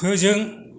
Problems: none marked